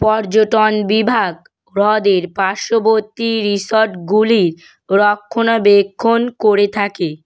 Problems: none marked